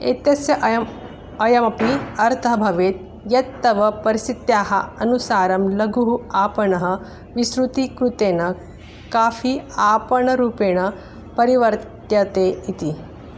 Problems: background sounds at intervals